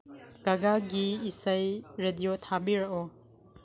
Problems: background sounds at intervals